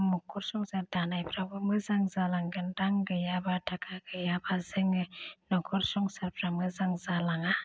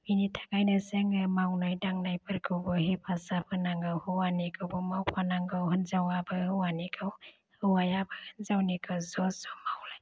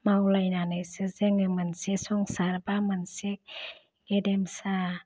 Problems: none marked